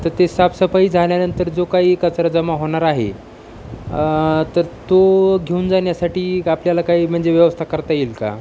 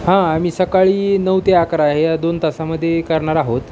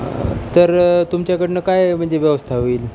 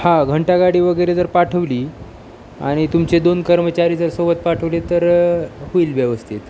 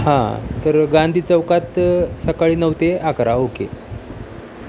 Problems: none marked